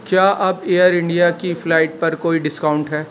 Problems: constant background noise